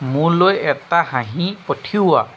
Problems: constant background noise